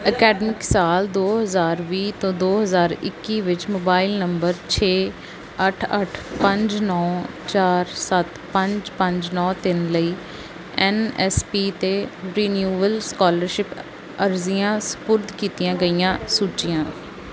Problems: none marked